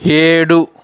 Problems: continuous background conversations